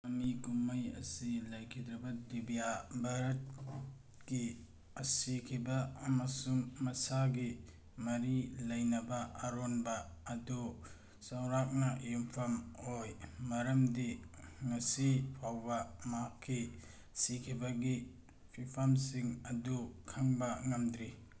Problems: none marked